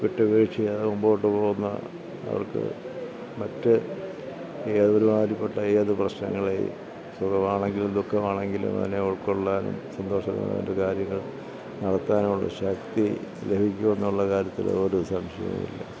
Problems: low volume